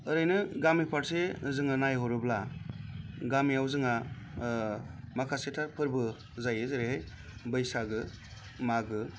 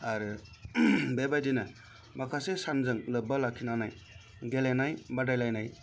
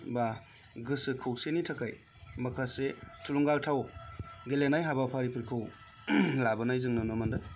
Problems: none marked